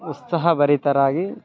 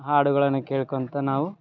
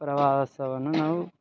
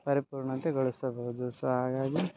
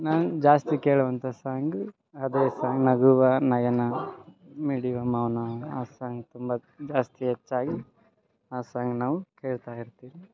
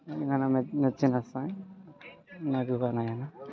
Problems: background sounds at intervals